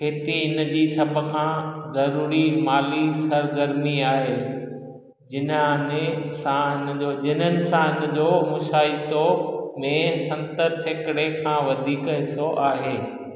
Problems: echo